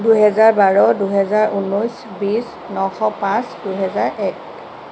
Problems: constant background noise